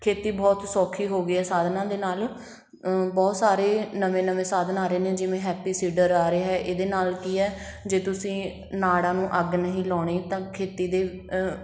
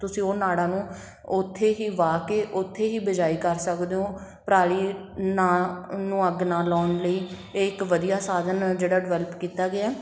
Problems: background sounds at intervals